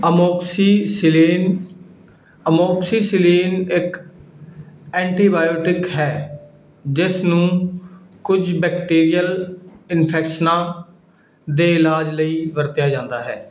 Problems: background sounds at intervals